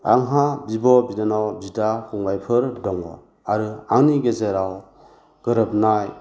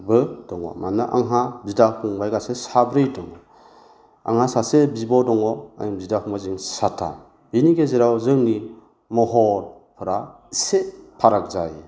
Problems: low volume